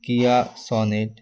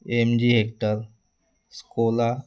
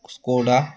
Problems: constant background noise, continuous background conversations